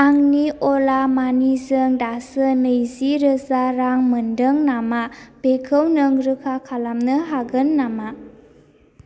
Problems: none marked